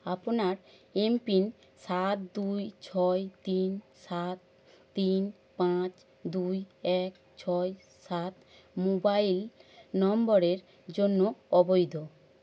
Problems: constant background noise